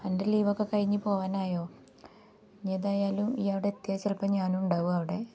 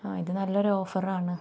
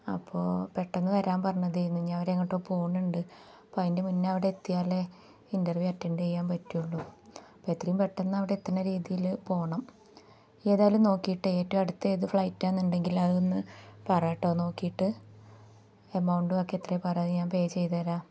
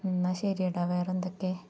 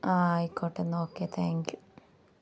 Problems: none marked